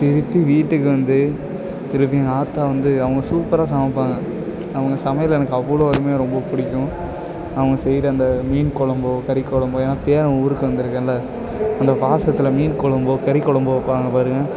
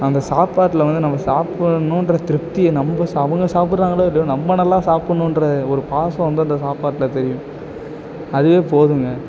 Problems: constant background noise